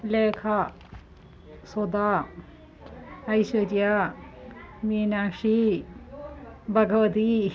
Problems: continuous background conversations